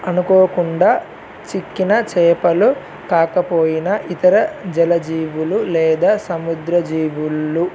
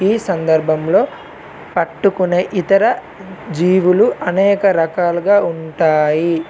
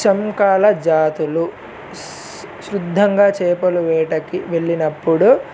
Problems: none marked